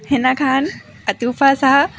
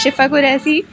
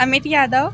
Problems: constant background noise